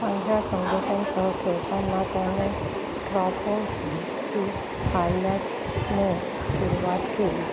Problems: constant background noise, continuous background conversations